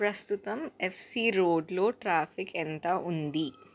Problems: none marked